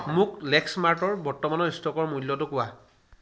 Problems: background sounds at intervals